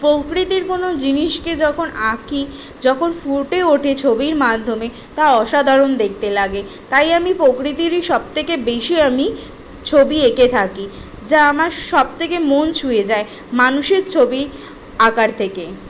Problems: background sounds at intervals